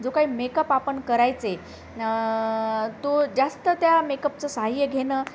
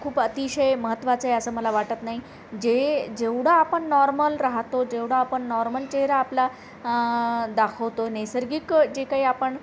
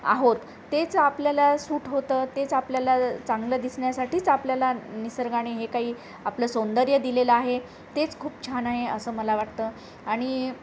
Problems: none marked